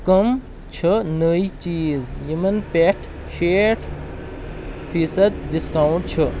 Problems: constant background noise